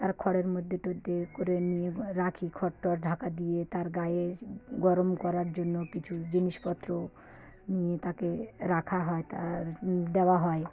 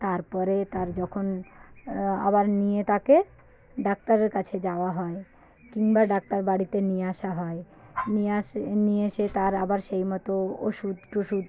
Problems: constant background noise, background conversations at intervals